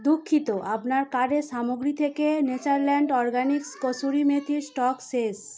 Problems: continuous background conversations